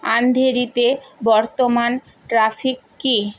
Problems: constant background noise